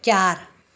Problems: background sounds at intervals